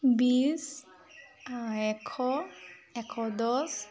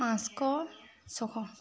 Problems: constant background noise